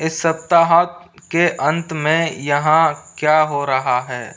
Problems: constant background noise